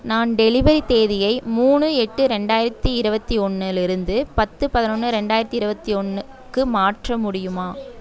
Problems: background conversations at intervals